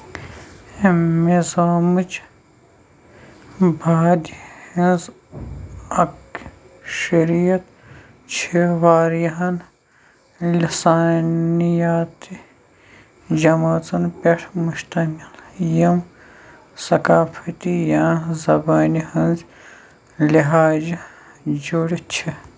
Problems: none marked